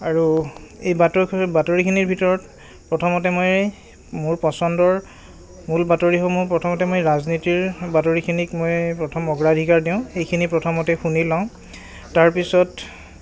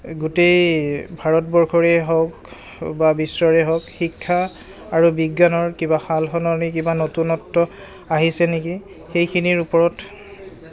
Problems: none marked